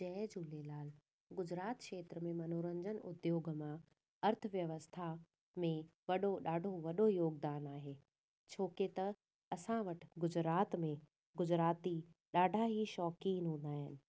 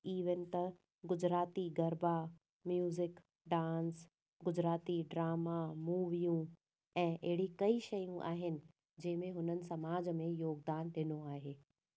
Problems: none marked